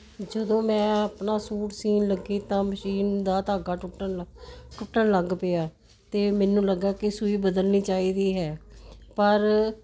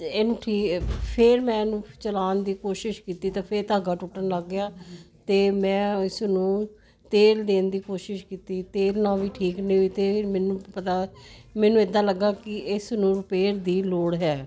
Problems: constant background noise